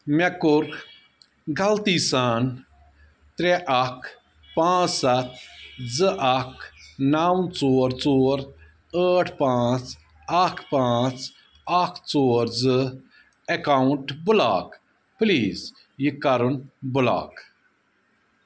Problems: none marked